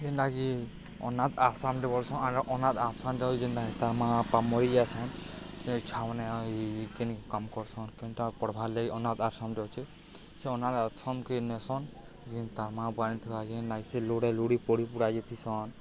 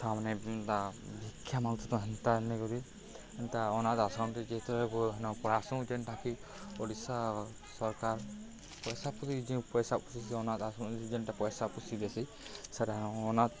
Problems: low volume